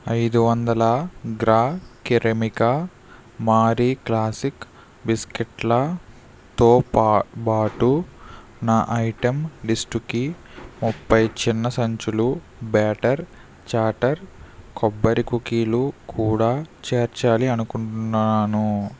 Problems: background sounds at intervals